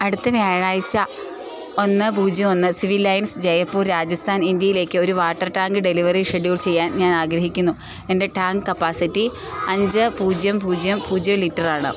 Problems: constant background noise